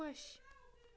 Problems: background sounds at intervals